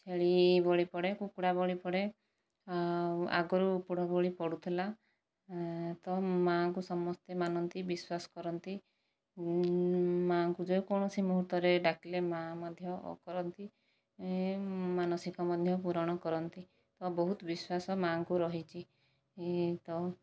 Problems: low volume